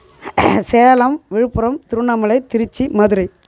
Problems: background sounds at intervals